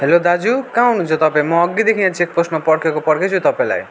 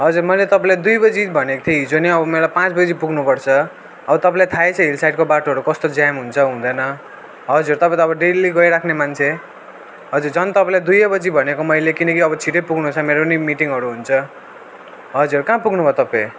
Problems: none marked